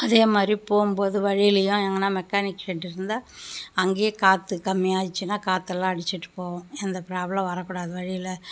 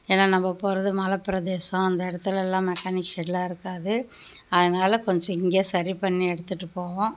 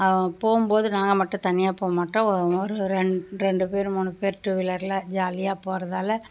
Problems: background sounds at intervals